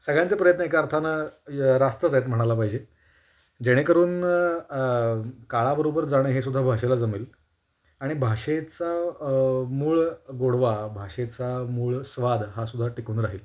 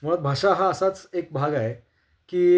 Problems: constant background noise